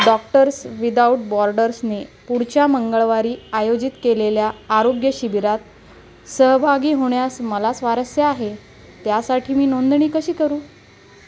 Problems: constant background noise, background conversations at intervals